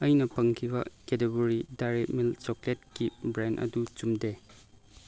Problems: none marked